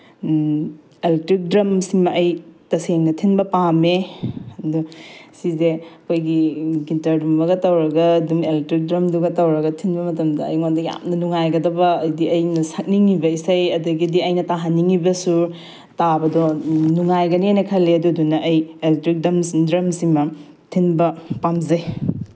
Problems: background sounds at intervals